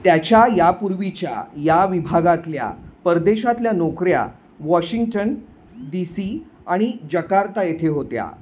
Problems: constant background noise